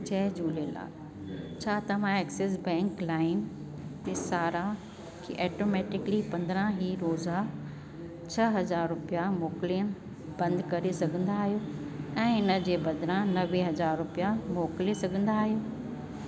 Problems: constant background noise, echo